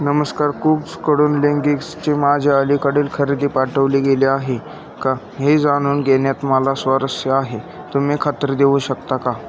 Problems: constant background noise, continuous background conversations